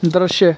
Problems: constant background noise